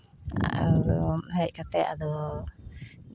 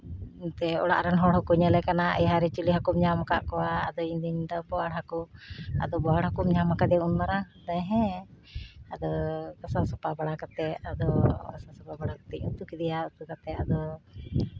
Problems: constant background noise